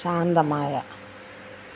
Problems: constant background noise